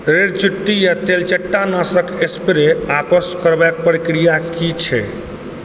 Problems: background sounds at intervals